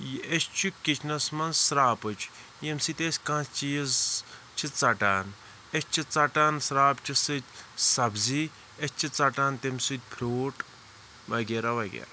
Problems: constant background noise